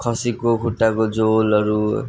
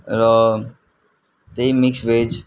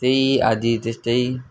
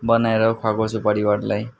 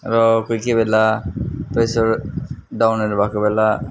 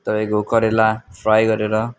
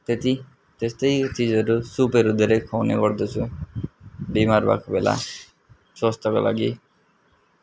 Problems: background sounds at intervals